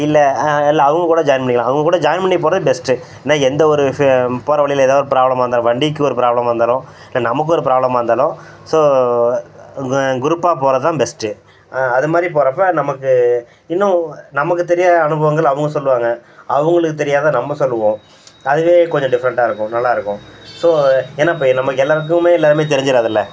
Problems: background sounds at intervals